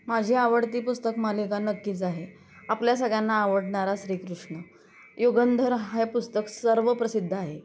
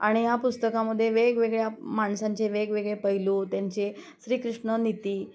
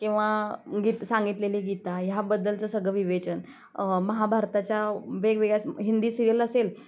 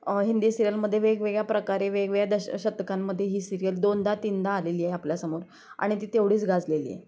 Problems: constant background noise, background conversations at intervals